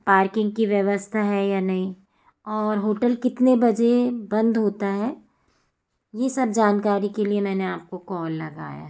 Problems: constant background noise